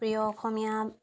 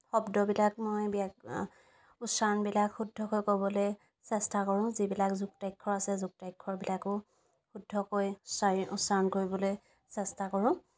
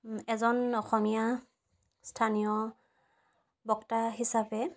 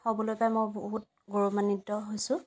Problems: background sounds at intervals